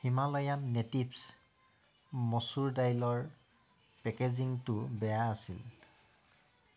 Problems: background sounds at intervals